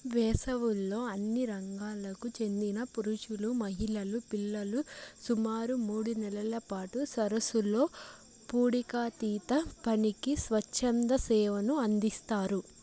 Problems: constant background noise